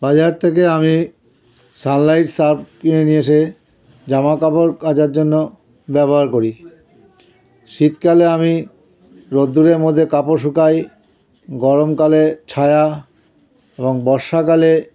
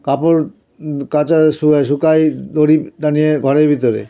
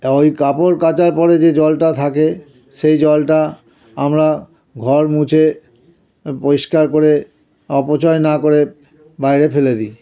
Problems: continuous background conversations